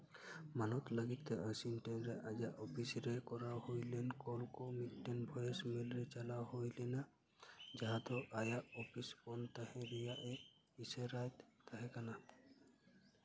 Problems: none marked